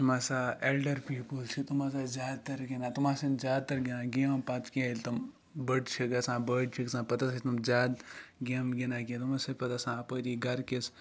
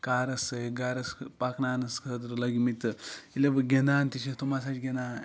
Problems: none marked